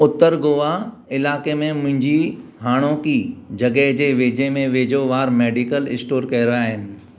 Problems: none marked